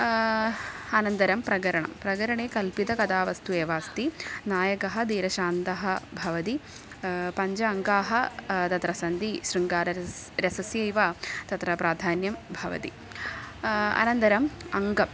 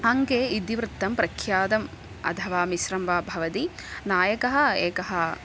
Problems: constant background noise